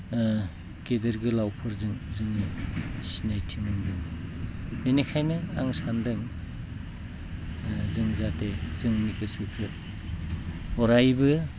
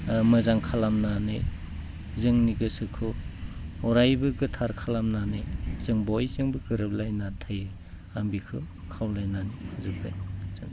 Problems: none marked